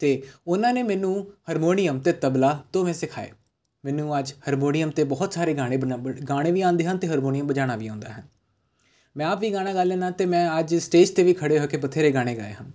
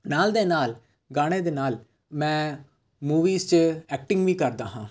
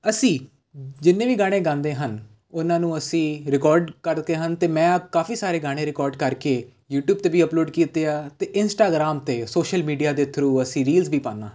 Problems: none marked